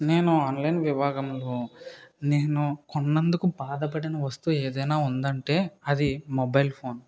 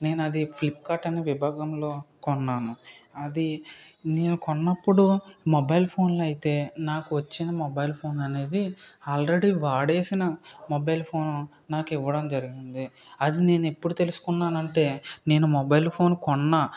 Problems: background sounds at intervals